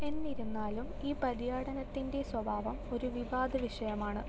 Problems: low volume